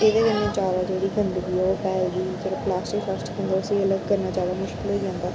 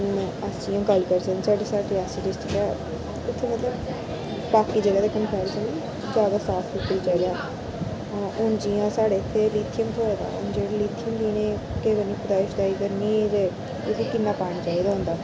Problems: constant background noise